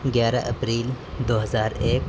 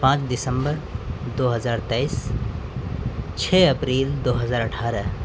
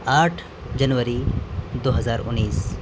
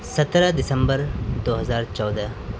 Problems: background sounds at intervals, background conversations at intervals